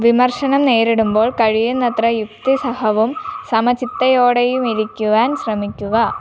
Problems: background sounds at intervals